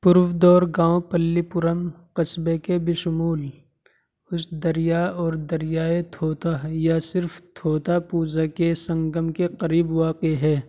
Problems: constant background noise